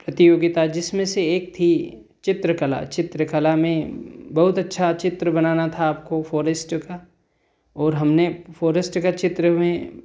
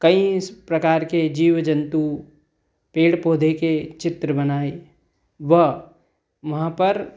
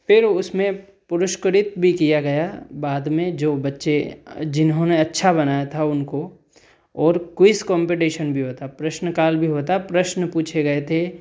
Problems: background sounds at intervals